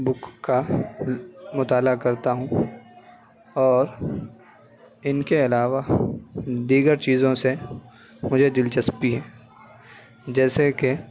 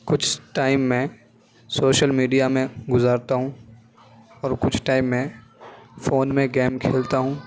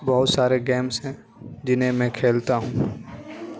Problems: none marked